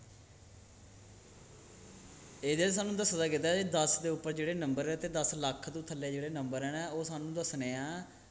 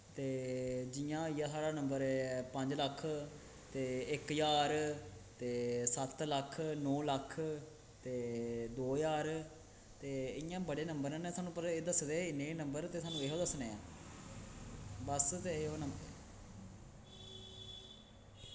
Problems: constant background noise, echo